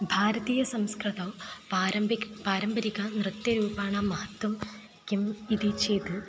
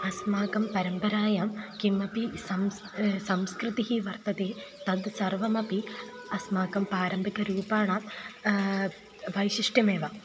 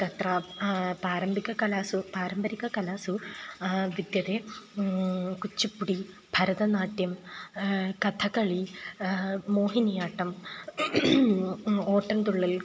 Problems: constant background noise, continuous background conversations